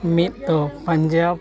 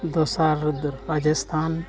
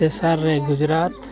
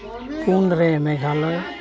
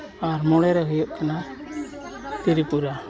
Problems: background sounds at intervals, continuous background conversations